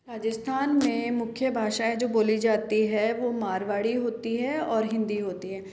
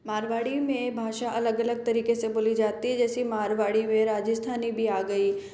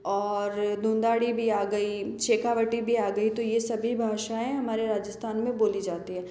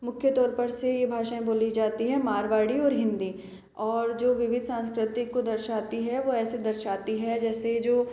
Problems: constant background noise, echo